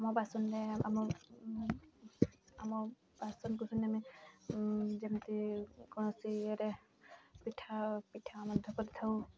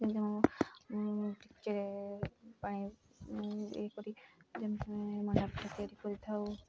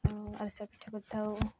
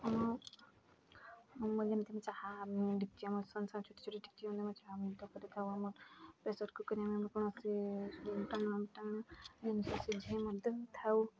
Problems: constant background noise, continuous background conversations